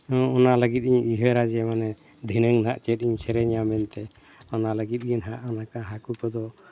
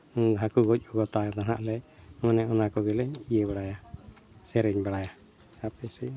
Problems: none marked